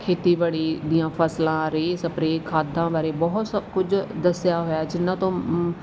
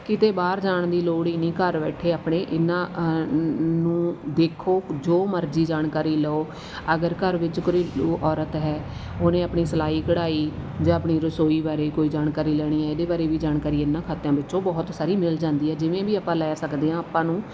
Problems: none marked